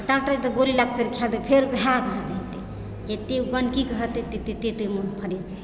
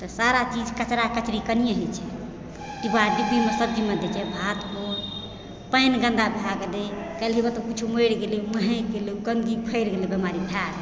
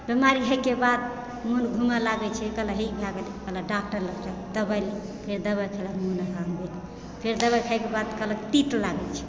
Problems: constant background noise, background conversations at intervals